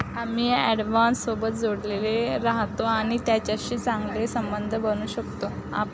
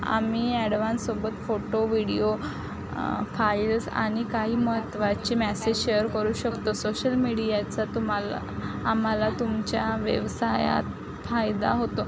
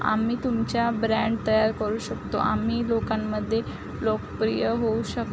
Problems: constant background noise, background conversations at intervals